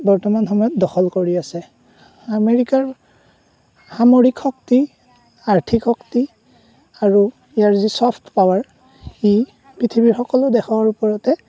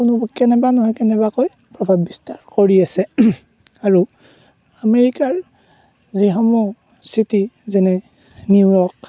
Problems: none marked